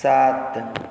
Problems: none marked